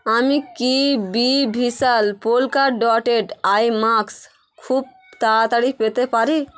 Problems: constant background noise, background conversations at intervals